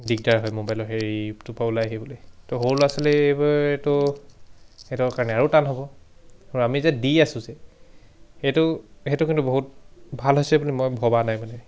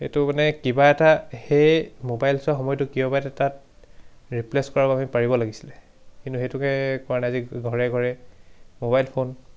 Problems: background sounds at intervals, background conversations at intervals